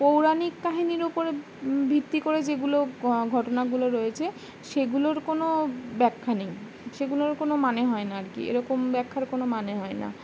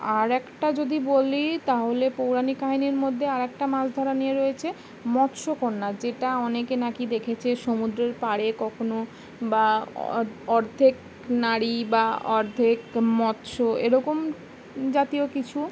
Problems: constant background noise